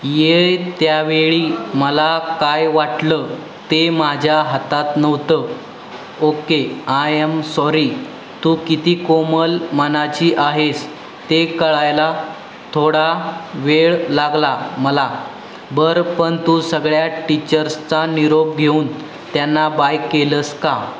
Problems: constant background noise